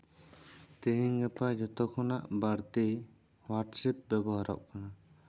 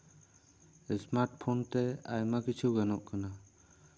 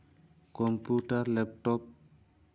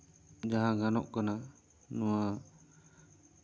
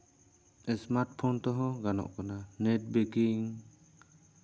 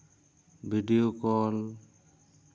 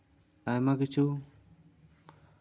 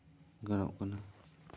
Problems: none marked